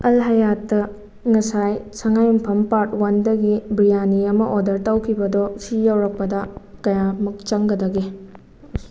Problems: none marked